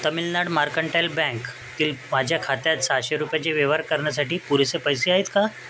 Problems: constant background noise, continuous background conversations